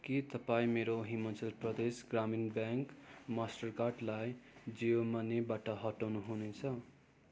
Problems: constant background noise